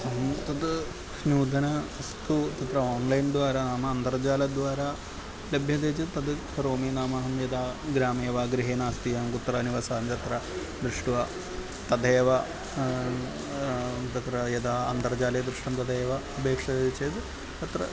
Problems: constant background noise